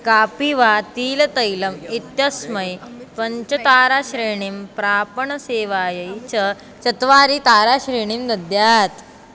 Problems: background sounds at intervals